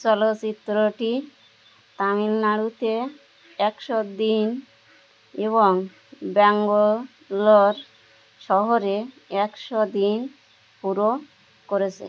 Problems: constant background noise